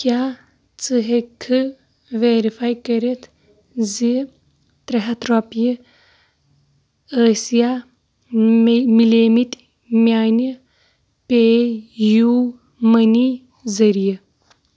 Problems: constant background noise